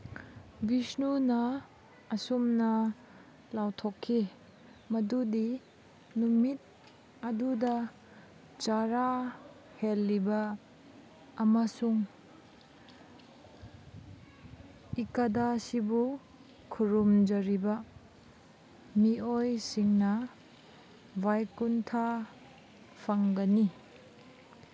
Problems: background sounds at intervals